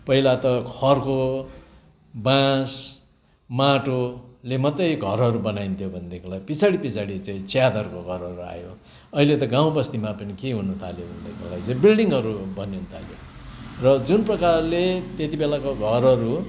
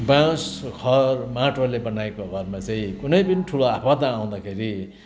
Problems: constant background noise